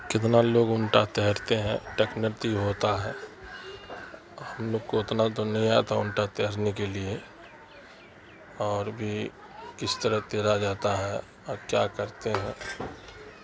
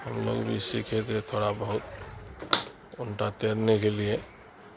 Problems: constant background noise